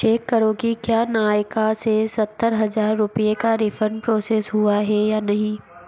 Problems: none marked